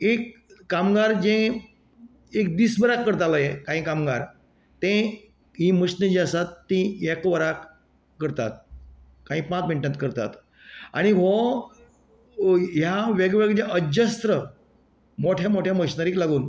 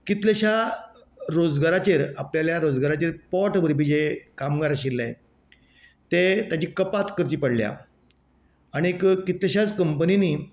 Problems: none marked